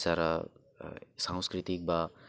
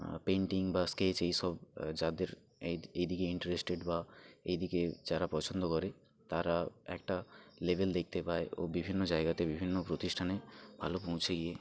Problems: none marked